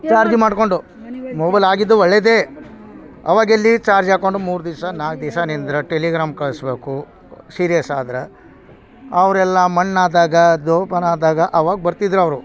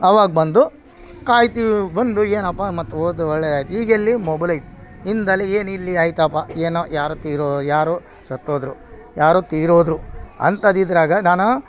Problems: background sounds at intervals